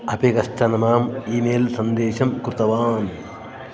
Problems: continuous background conversations